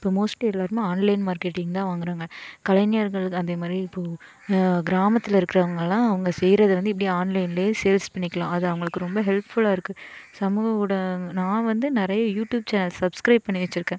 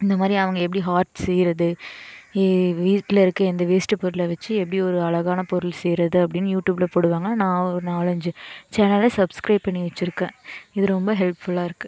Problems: none marked